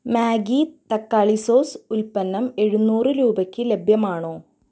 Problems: low volume